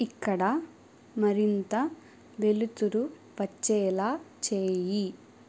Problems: none marked